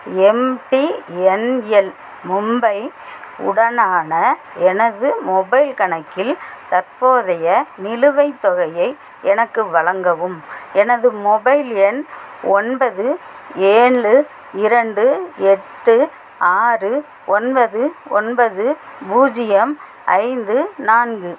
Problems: constant background noise